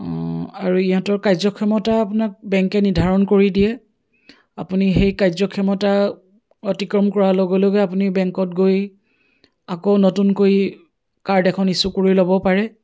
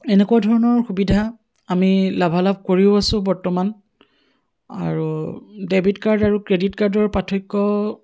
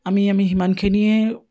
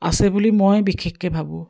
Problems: none marked